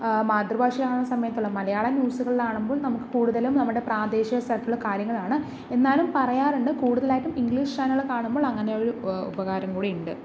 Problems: none marked